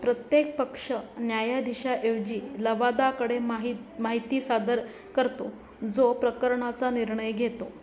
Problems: none marked